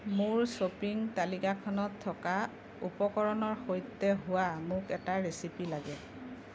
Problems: background sounds at intervals